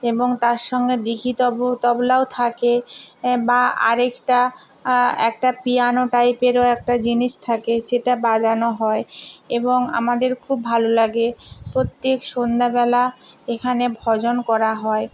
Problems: none marked